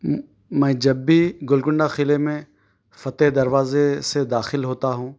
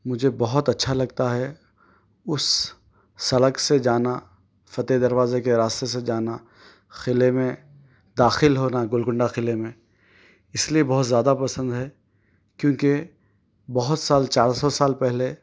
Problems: none marked